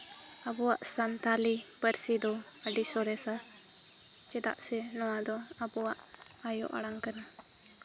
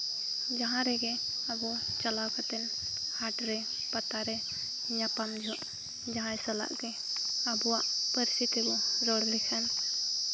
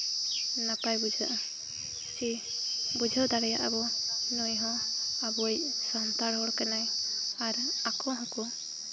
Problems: constant background noise, background conversations at intervals